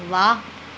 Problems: background sounds at intervals